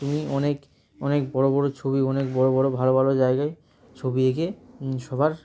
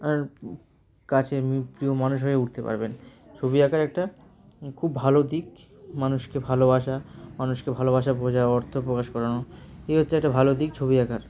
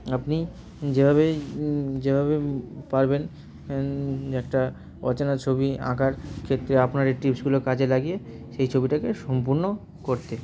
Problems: none marked